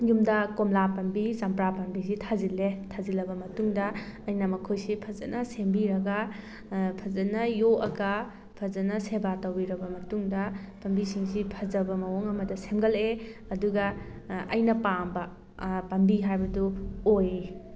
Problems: background sounds at intervals